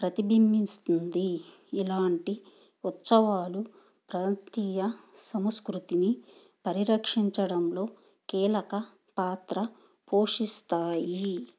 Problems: background sounds at intervals